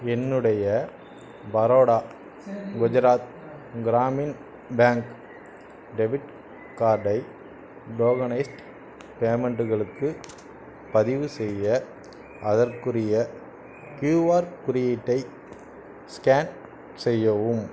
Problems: none marked